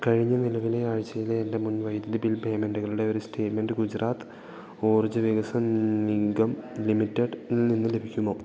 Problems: none marked